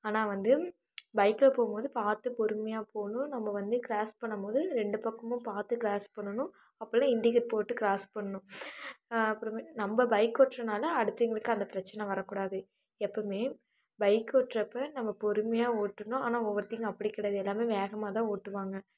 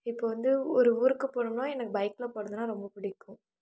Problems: low volume